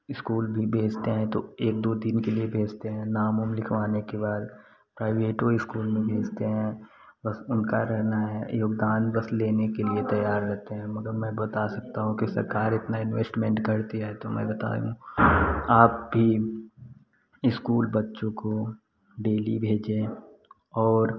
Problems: none marked